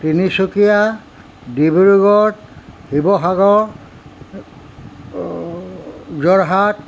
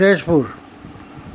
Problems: constant background noise